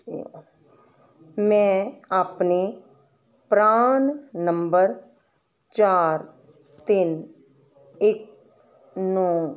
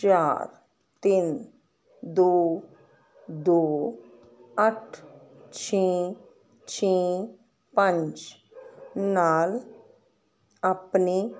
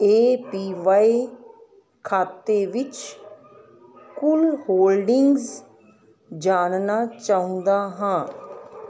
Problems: constant background noise